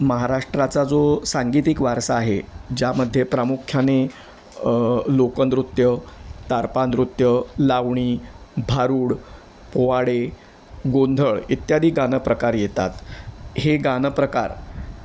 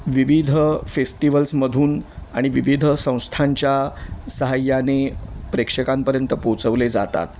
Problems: none marked